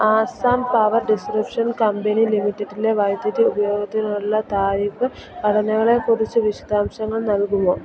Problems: constant background noise